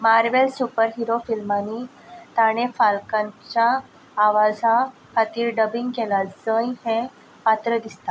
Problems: none marked